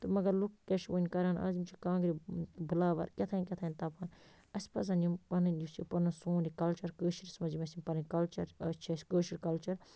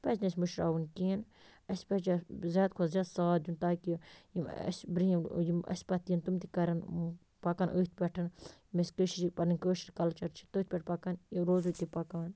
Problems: constant background noise